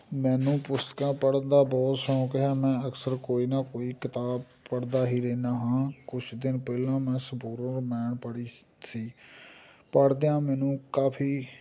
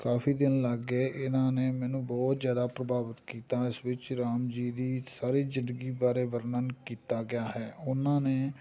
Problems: background sounds at intervals